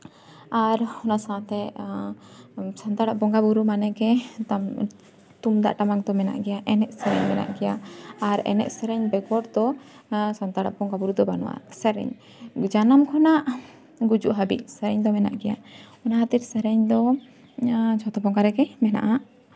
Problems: none marked